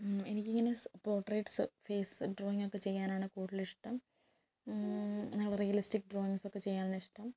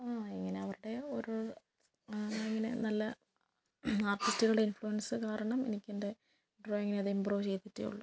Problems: low volume